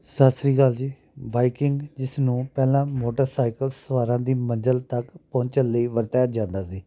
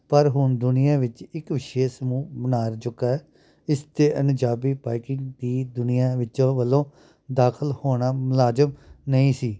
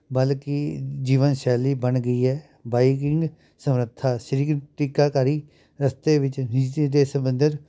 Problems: background sounds at intervals